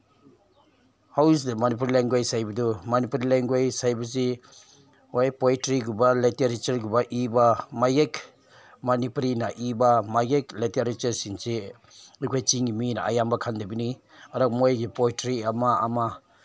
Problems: background sounds at intervals